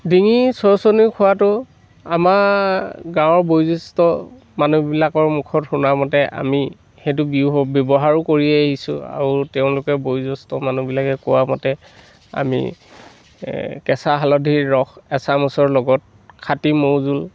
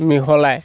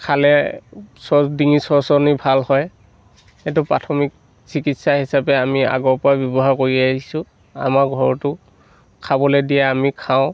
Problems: none marked